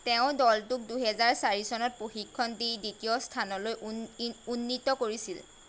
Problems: constant background noise